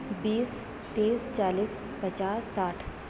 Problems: constant background noise, low volume